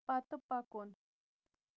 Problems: constant background noise